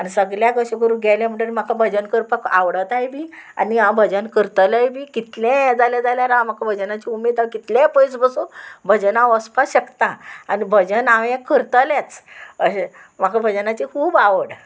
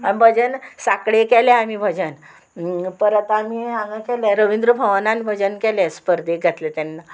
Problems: none marked